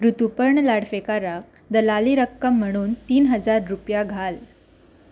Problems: none marked